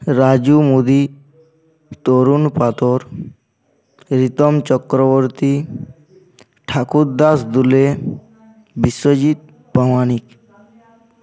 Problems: background sounds at intervals